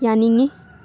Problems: background sounds at intervals